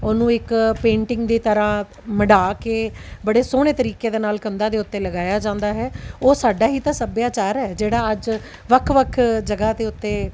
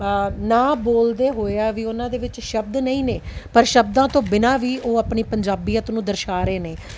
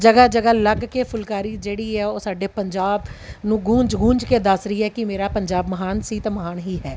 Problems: background sounds at intervals